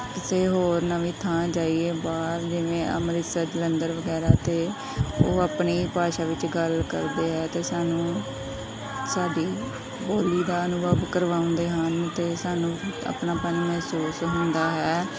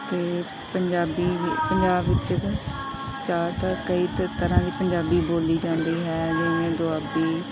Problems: background sounds at intervals, background conversations at intervals